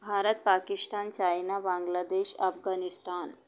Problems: none marked